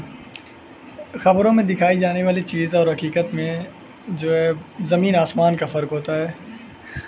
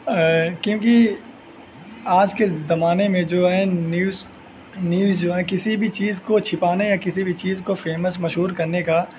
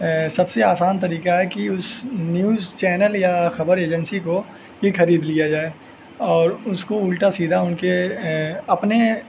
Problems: constant background noise